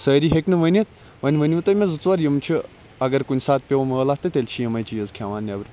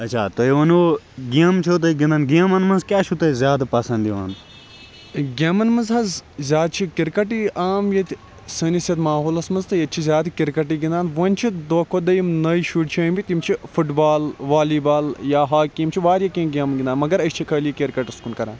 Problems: constant background noise